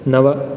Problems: none marked